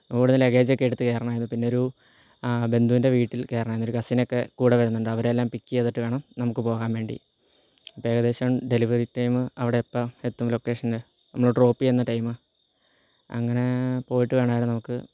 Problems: low volume